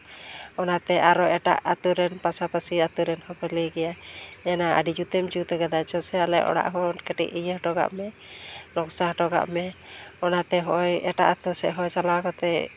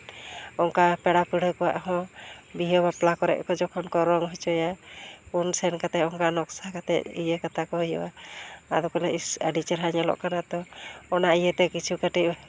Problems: background conversations at intervals